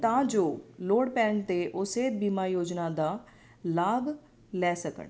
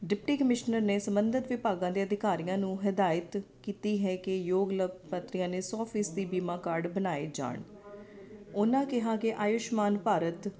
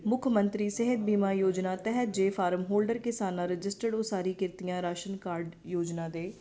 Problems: constant background noise